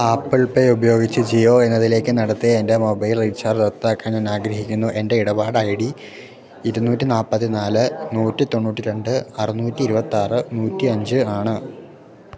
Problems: low volume